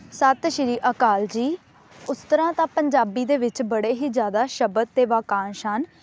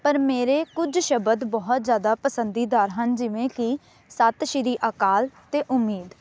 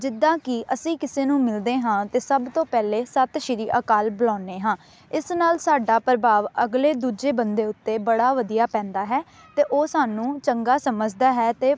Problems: none marked